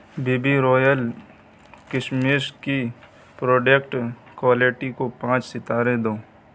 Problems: constant background noise